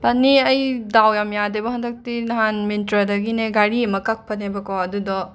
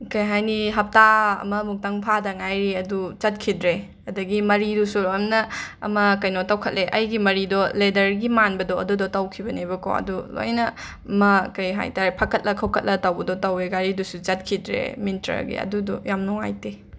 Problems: none marked